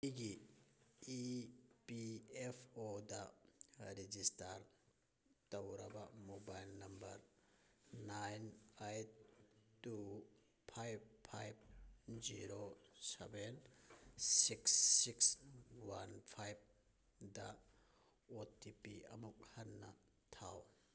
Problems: none marked